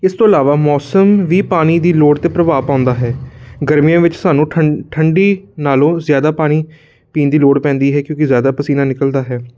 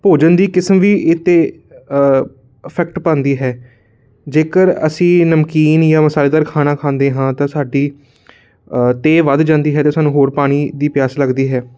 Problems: none marked